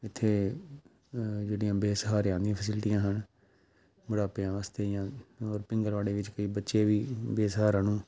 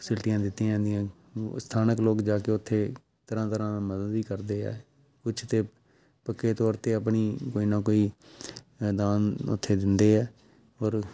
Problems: background sounds at intervals